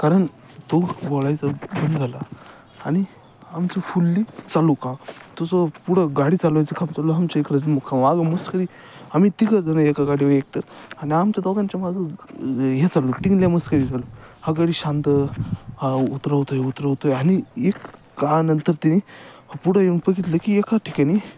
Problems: none marked